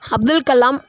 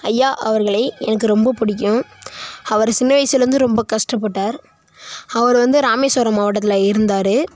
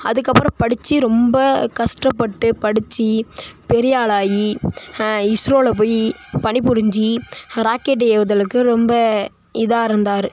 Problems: constant background noise